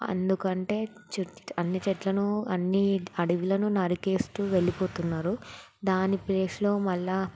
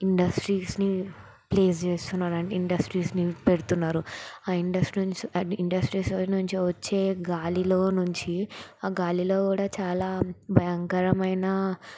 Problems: background sounds at intervals